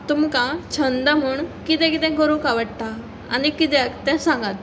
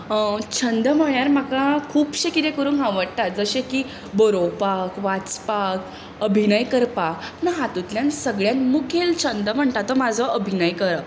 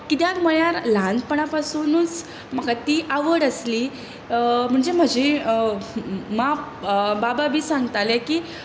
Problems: constant background noise